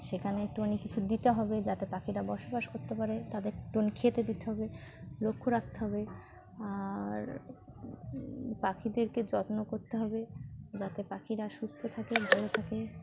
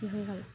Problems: background sounds at intervals